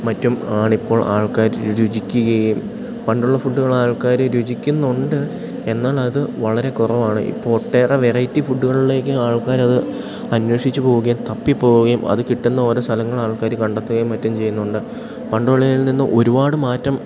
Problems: background sounds at intervals